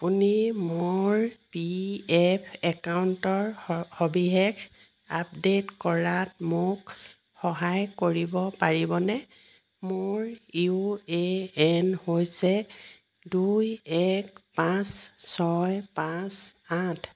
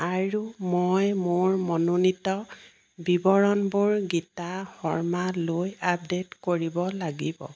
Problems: background sounds at intervals